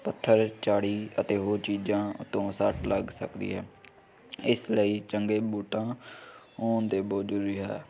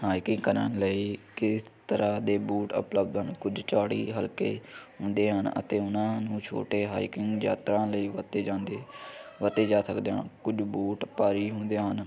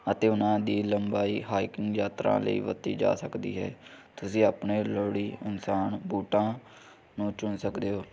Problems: none marked